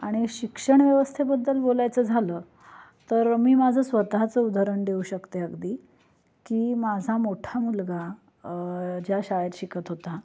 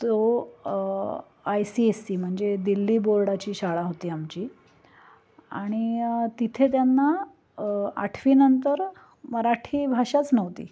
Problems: constant background noise